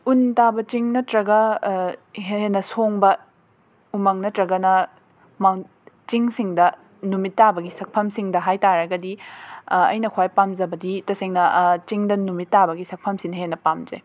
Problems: background sounds at intervals